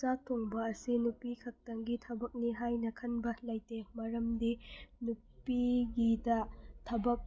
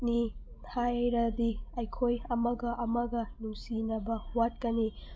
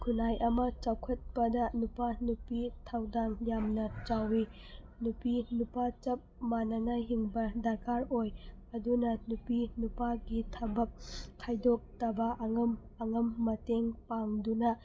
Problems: background sounds at intervals